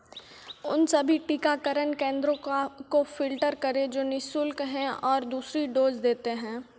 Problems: none marked